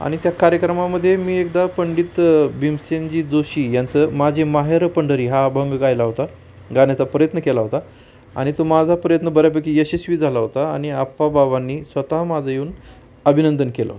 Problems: constant background noise, background conversations at intervals